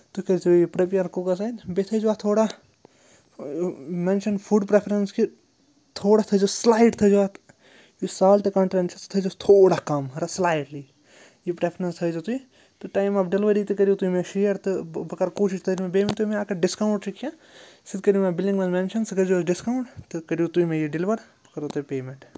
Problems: none marked